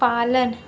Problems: constant background noise